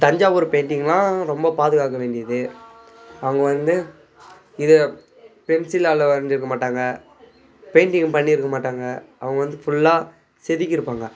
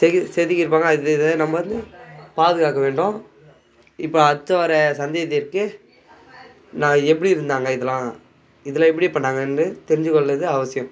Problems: background sounds at intervals, background conversations at intervals